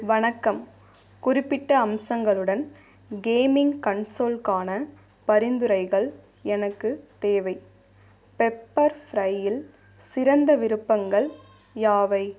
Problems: background sounds at intervals